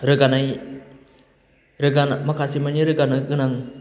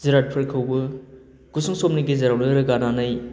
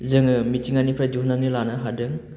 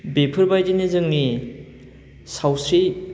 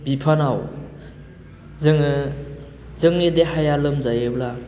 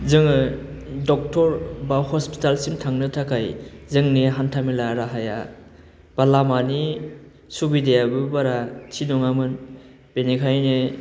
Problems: constant background noise